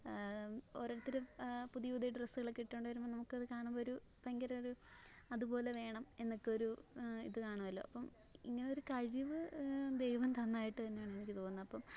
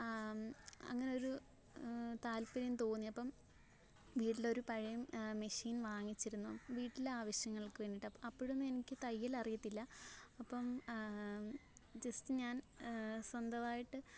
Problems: low volume